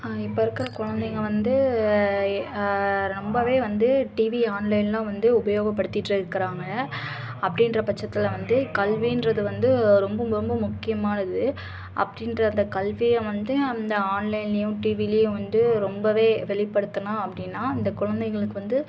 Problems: constant background noise, continuous background conversations